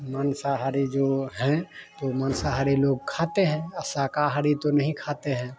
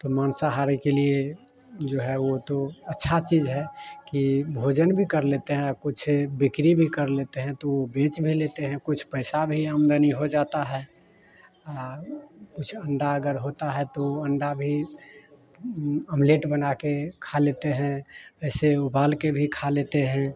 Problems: none marked